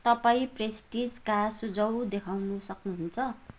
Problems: none marked